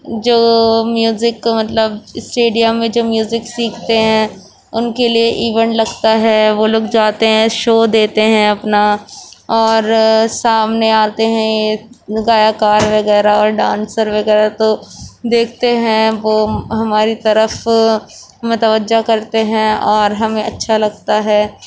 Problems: background sounds at intervals